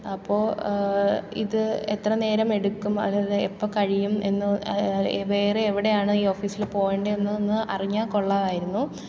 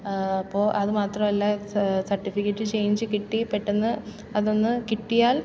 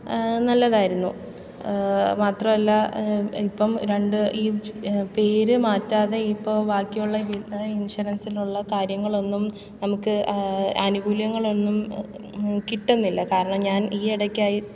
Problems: background sounds at intervals